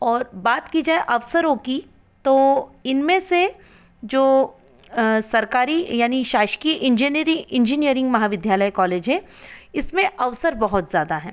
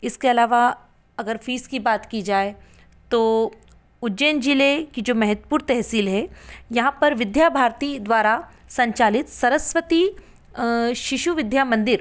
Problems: background sounds at intervals